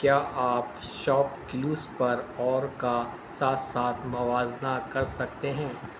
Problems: constant background noise